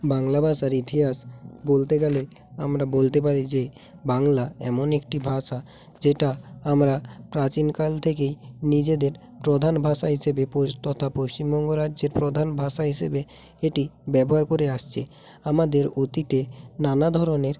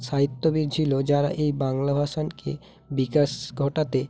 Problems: background sounds at intervals